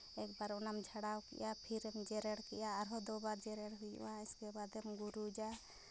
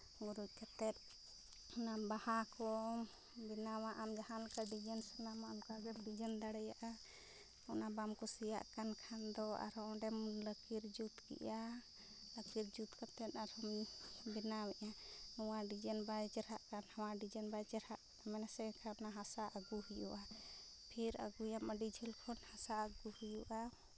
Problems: none marked